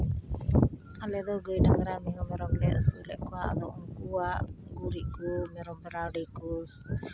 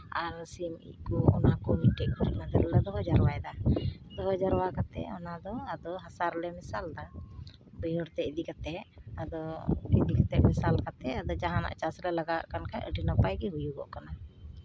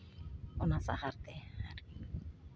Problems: none marked